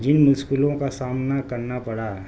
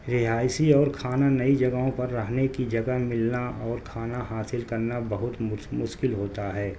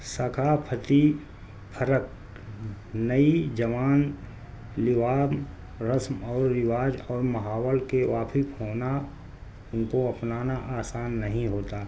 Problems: constant background noise